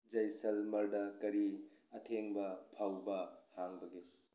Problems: background sounds at intervals